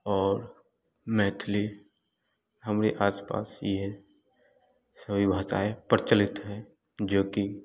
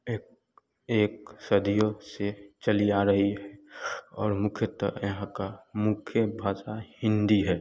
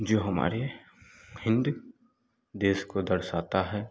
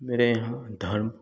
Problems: background sounds at intervals, continuous background conversations